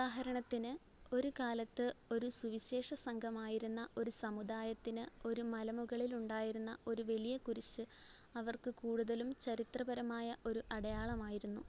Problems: none marked